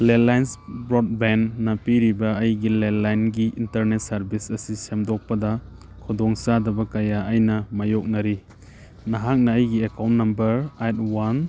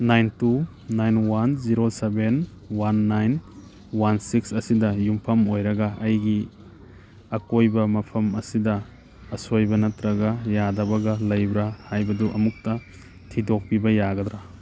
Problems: background sounds at intervals